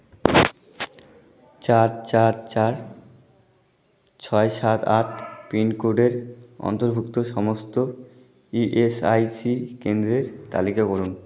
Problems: background conversations at intervals